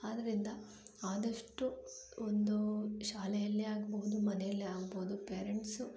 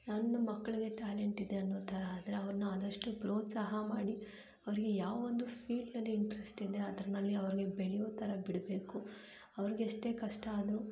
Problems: low volume